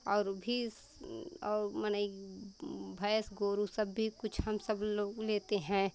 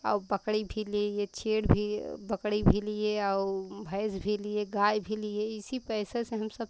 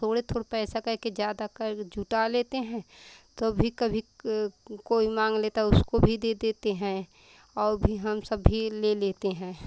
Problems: none marked